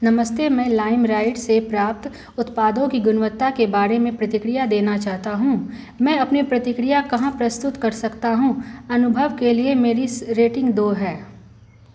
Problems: constant background noise